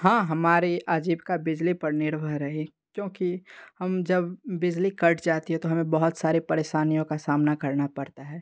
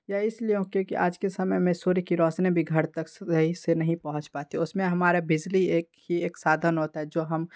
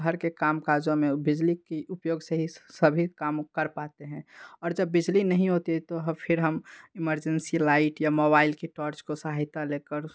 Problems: background sounds at intervals